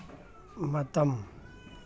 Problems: none marked